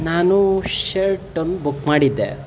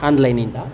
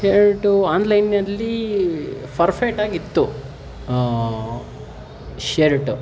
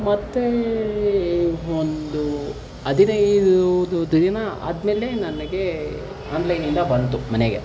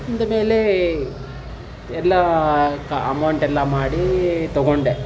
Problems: background sounds at intervals